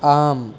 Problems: none marked